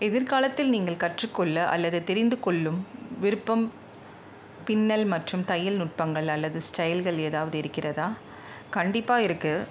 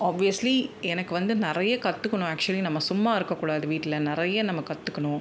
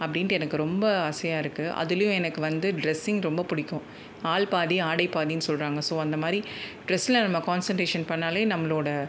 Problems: none marked